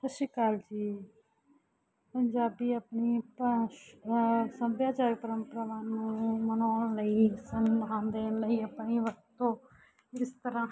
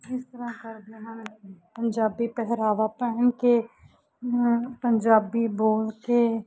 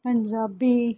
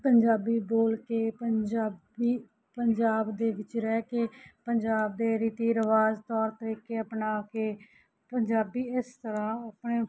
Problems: background sounds at intervals